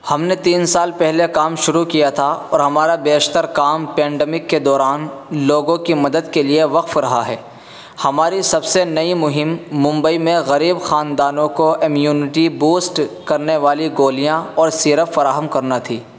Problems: constant background noise